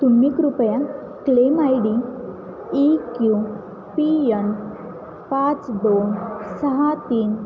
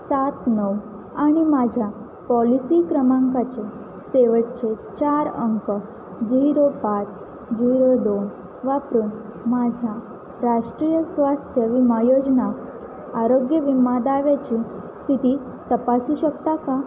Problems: constant background noise, background conversations at intervals